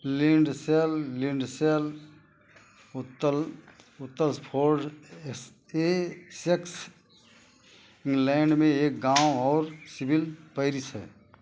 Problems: constant background noise